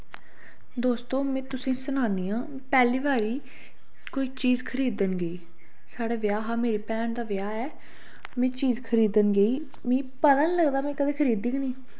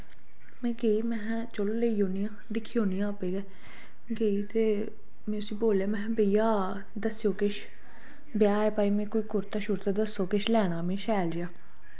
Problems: low volume